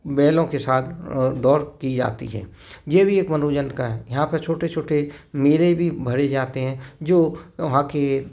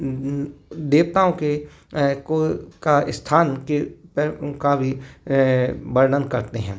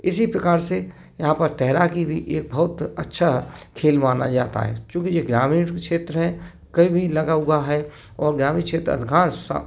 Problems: none marked